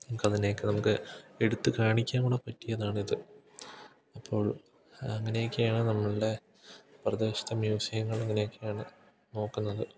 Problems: none marked